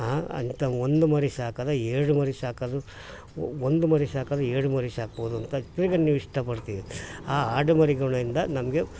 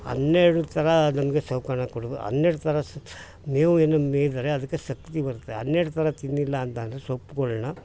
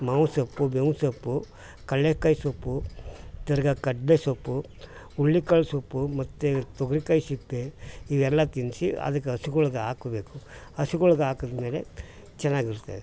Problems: background sounds at intervals